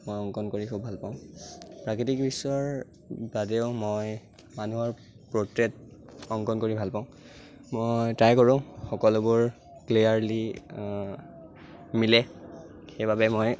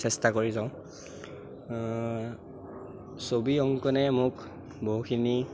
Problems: constant background noise